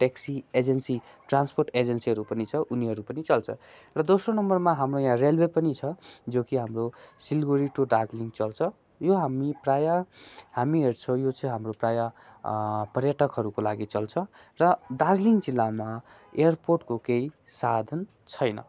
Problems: none marked